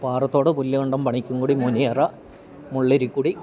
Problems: background sounds at intervals